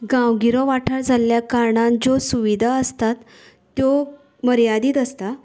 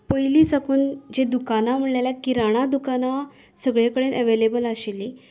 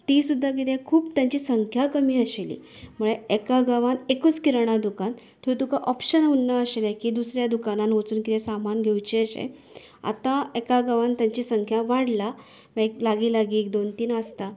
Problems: none marked